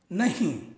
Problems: none marked